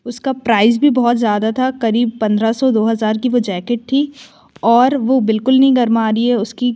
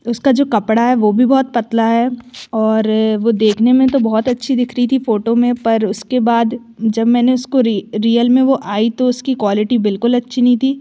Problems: background sounds at intervals